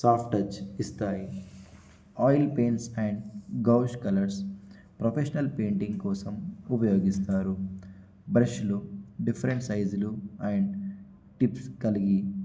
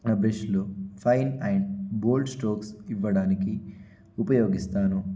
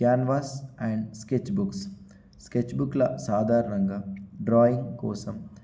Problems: constant background noise